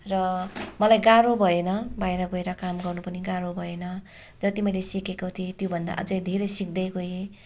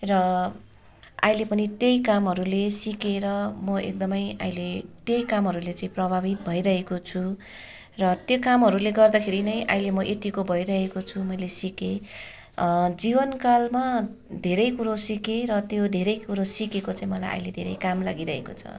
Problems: continuous background conversations